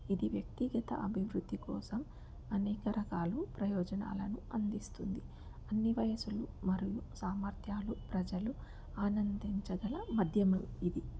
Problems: background sounds at intervals, low volume